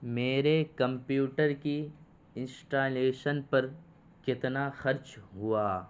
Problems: constant background noise